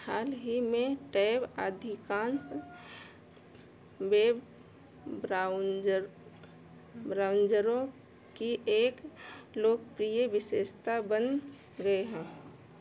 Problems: none marked